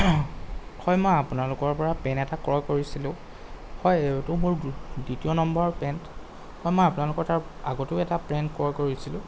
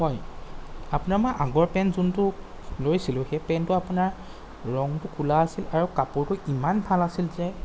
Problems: constant background noise